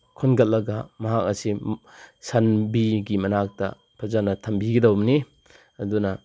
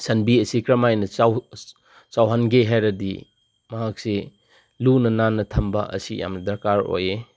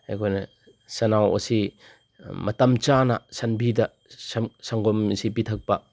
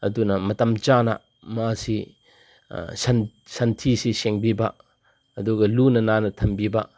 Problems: none marked